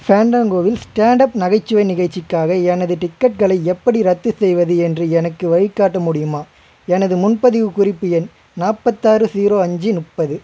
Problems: constant background noise